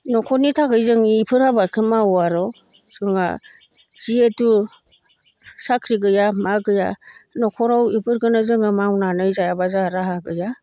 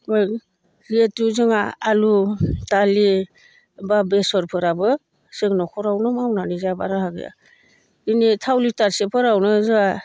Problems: low volume